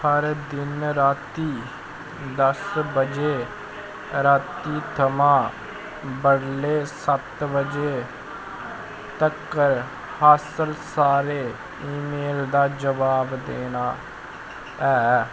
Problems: constant background noise